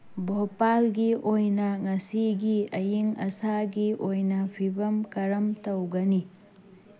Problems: constant background noise